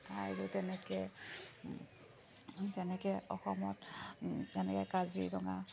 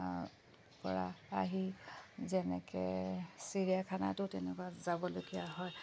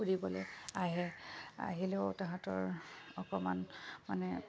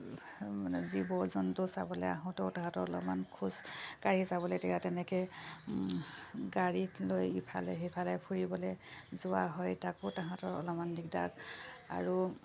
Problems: background sounds at intervals